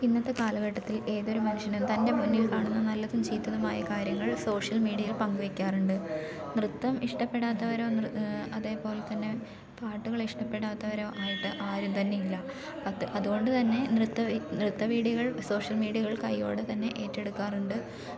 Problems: background sounds at intervals